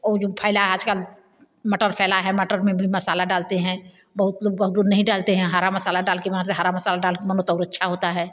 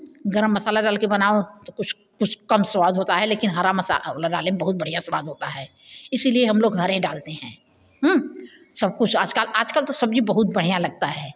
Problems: background sounds at intervals